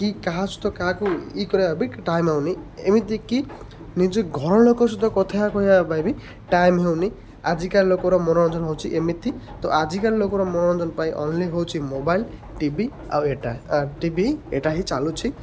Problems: constant background noise